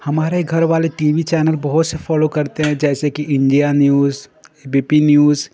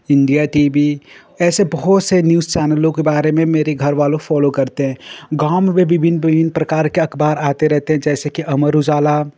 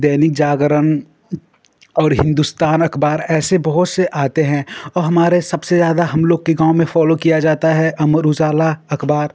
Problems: constant background noise